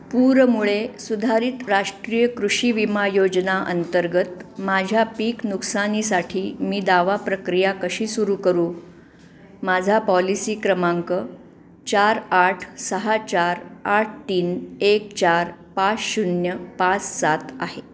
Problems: constant background noise, background conversations at intervals